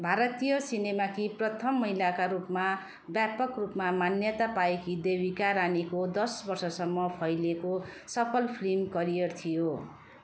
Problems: continuous background conversations